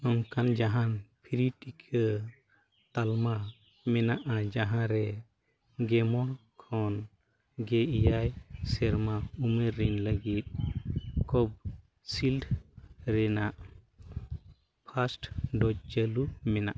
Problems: none marked